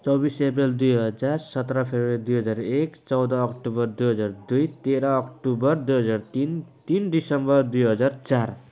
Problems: none marked